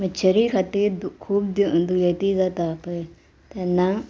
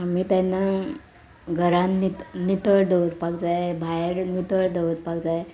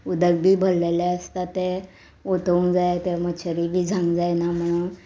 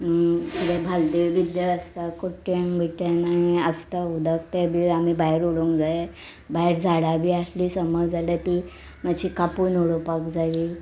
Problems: none marked